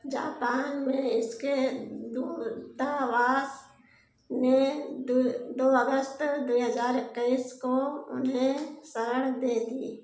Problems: background sounds at intervals, echo